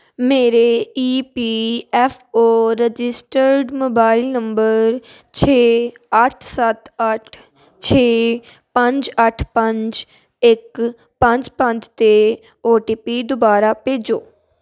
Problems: constant background noise